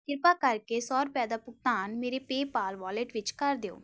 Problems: background sounds at intervals